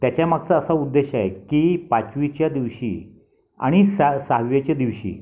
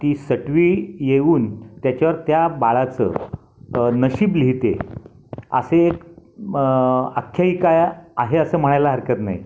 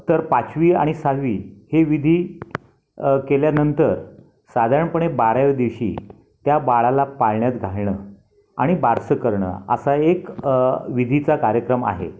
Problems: none marked